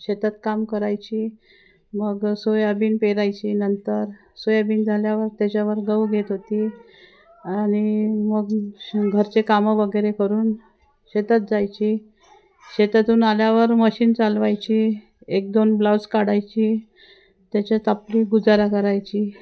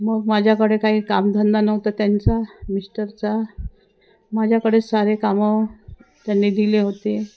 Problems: constant background noise, background conversations at intervals